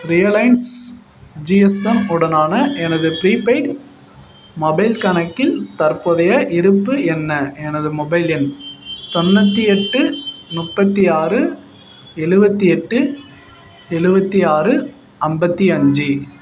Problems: background sounds at intervals